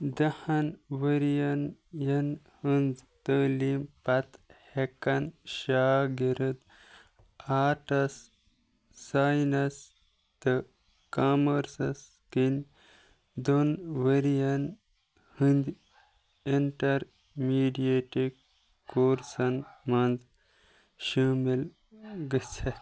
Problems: background sounds at intervals